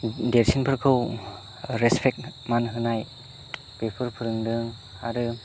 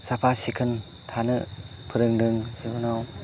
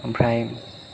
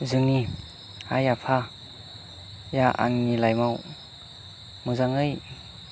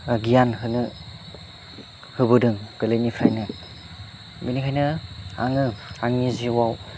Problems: constant background noise